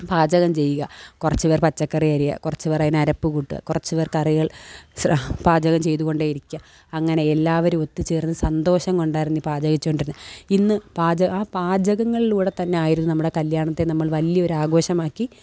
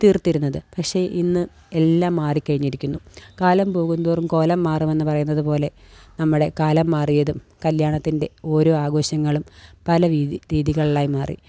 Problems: none marked